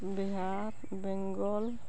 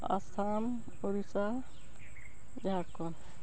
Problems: none marked